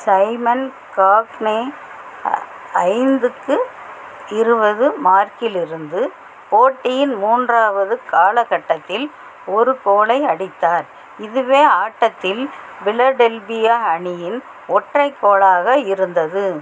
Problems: constant background noise